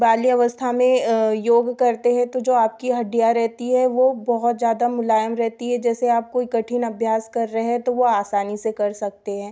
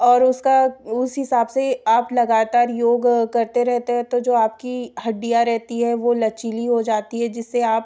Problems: background sounds at intervals